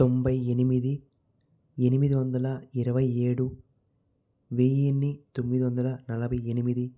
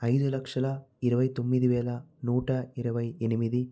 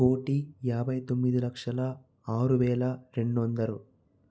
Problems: none marked